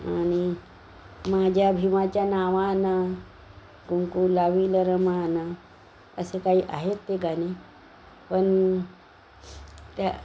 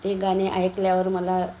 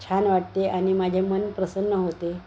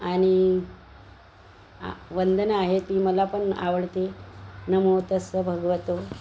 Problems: constant background noise